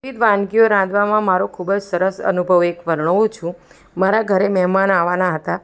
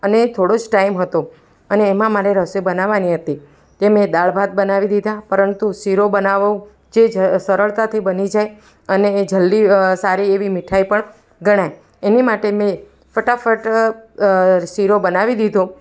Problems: background sounds at intervals, background conversations at intervals